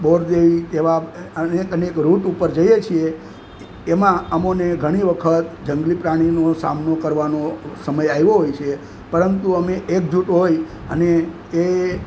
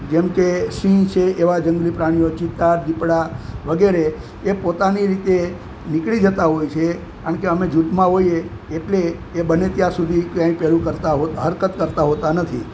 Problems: constant background noise